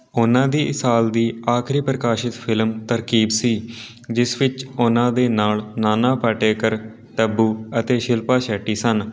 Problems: background sounds at intervals, background conversations at intervals